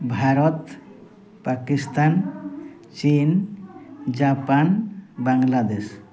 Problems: background sounds at intervals